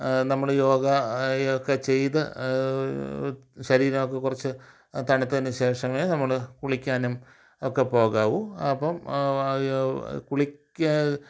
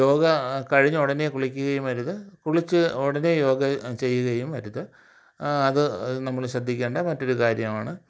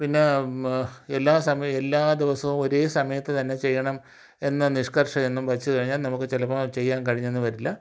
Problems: none marked